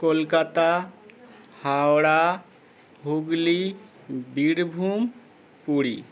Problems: constant background noise